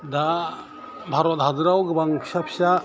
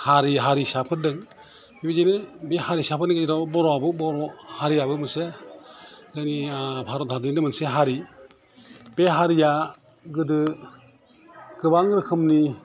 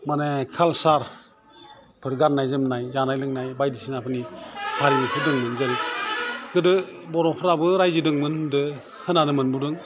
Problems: constant background noise